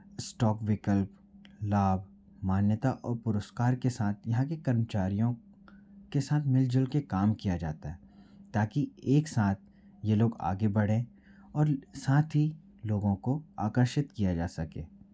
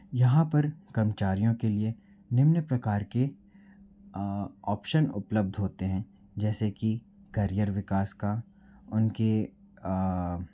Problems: low volume